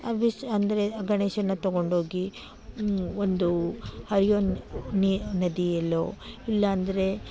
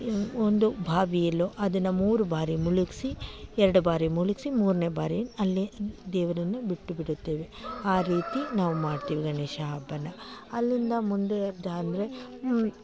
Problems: none marked